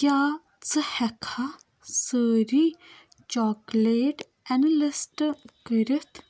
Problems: none marked